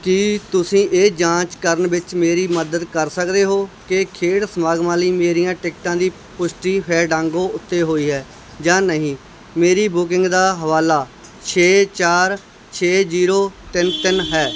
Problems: background sounds at intervals